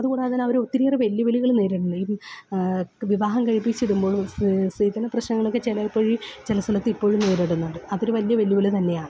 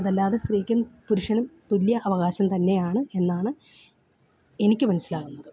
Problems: background sounds at intervals